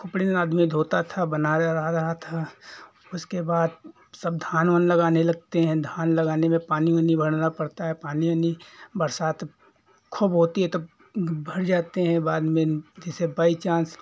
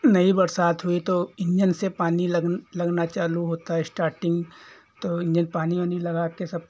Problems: background sounds at intervals